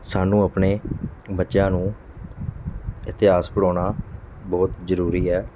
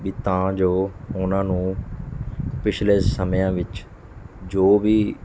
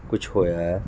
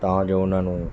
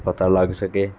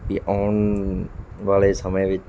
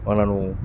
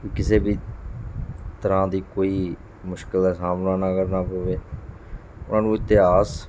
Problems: none marked